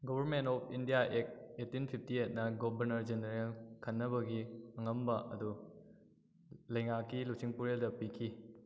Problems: echo